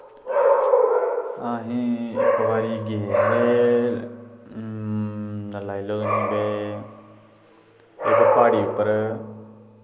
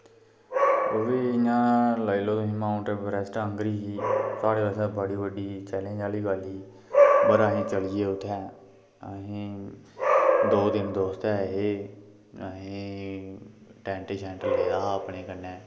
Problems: constant background noise